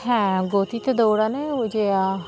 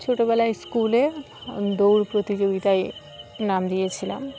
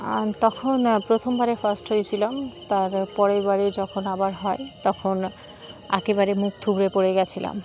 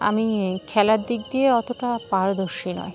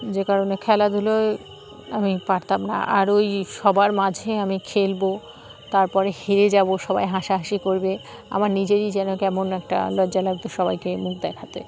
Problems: constant background noise, background conversations at intervals